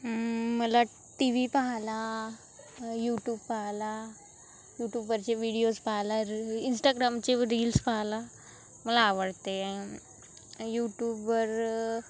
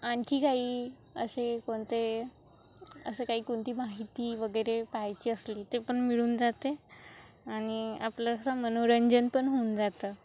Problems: constant background noise, continuous background conversations